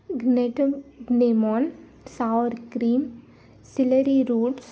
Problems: constant background noise, background conversations at intervals